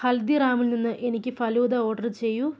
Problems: none marked